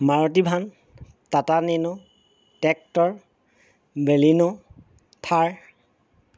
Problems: background sounds at intervals